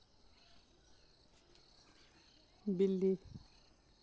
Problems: none marked